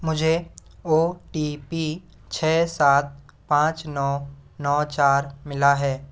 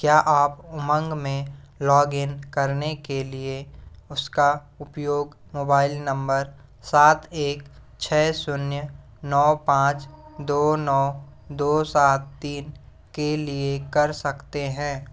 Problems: background sounds at intervals